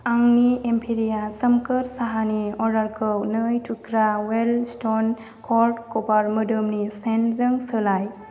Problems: constant background noise